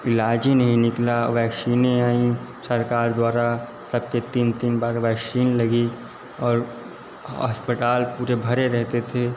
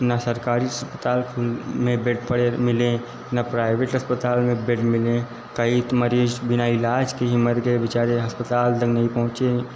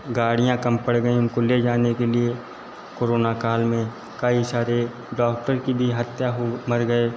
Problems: constant background noise, echo